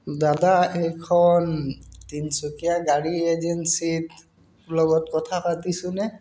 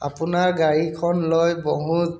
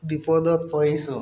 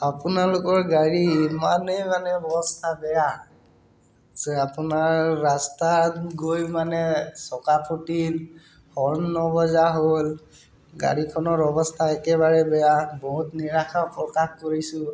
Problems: constant background noise